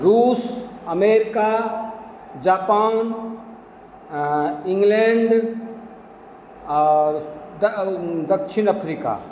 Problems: none marked